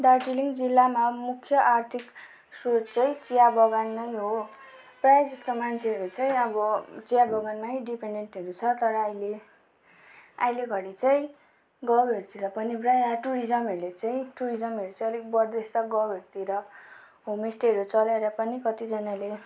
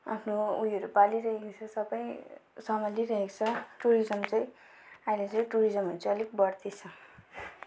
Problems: background sounds at intervals